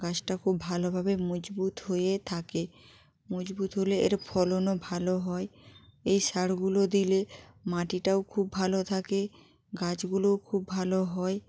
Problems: constant background noise